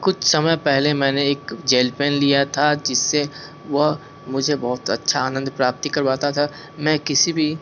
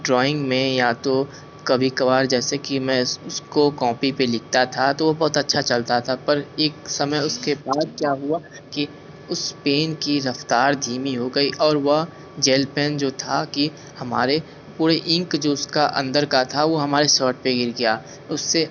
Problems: constant background noise